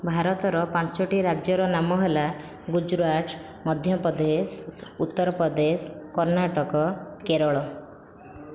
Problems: continuous background conversations